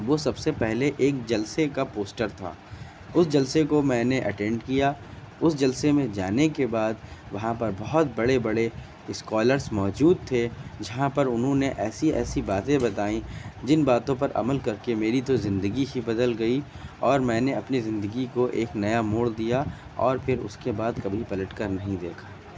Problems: constant background noise